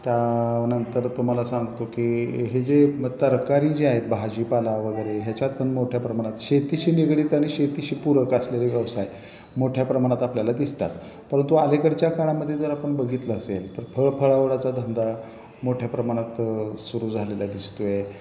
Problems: none marked